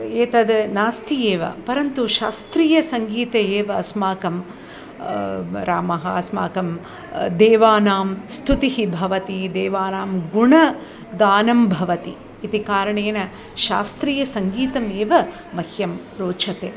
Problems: none marked